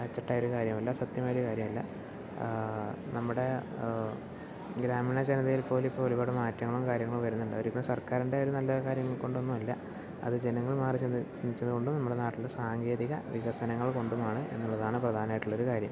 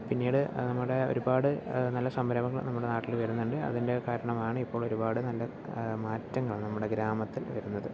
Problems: none marked